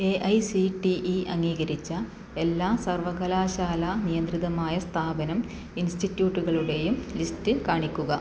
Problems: none marked